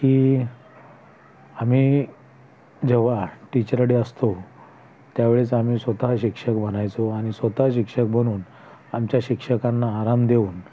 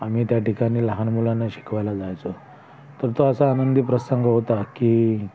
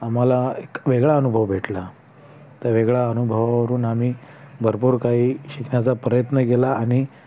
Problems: constant background noise, background conversations at intervals